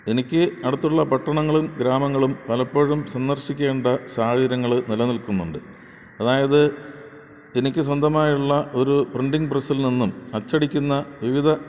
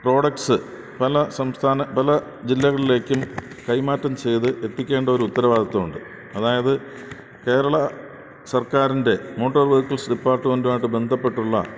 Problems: constant background noise